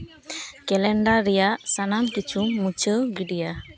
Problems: constant background noise, background conversations at intervals